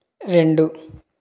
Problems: none marked